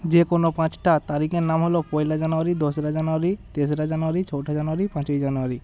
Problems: none marked